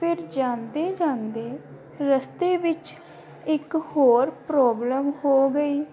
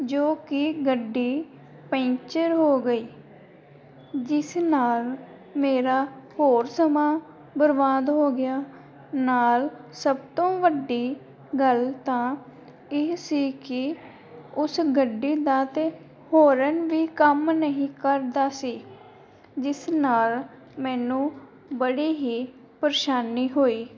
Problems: background sounds at intervals